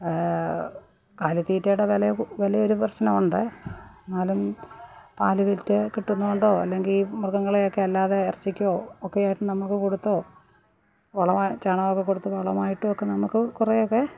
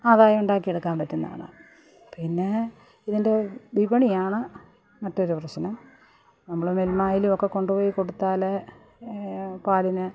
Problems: background sounds at intervals, background conversations at intervals, low volume